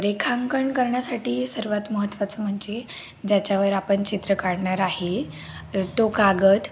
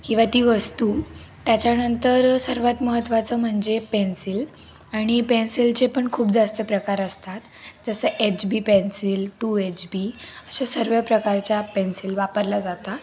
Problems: none marked